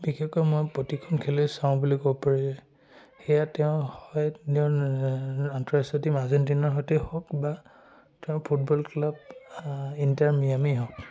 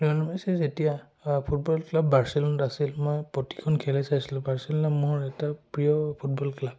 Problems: none marked